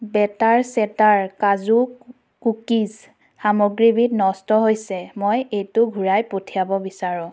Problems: none marked